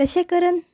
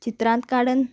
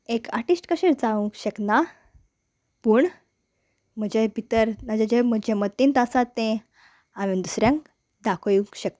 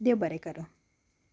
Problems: none marked